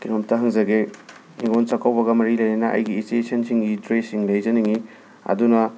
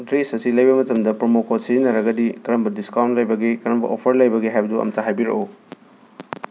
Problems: constant background noise